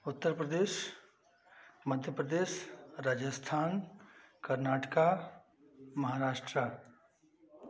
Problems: constant background noise